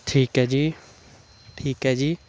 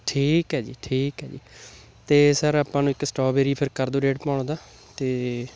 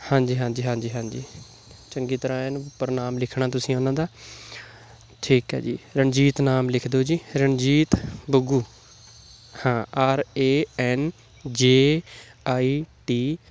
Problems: constant background noise